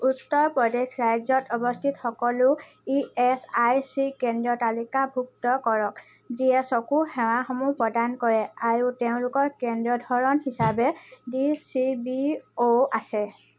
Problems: constant background noise